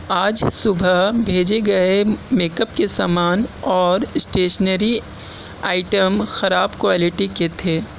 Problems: constant background noise